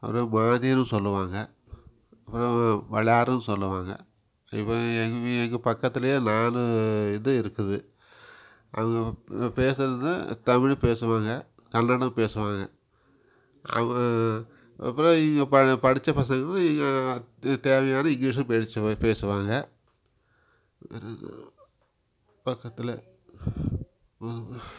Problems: background sounds at intervals